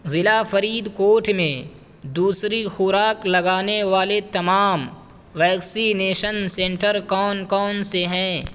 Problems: constant background noise